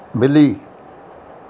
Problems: constant background noise